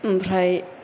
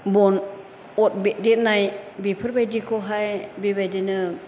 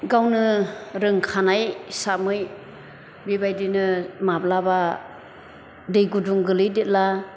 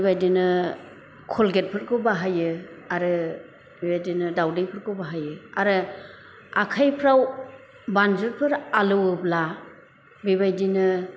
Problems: none marked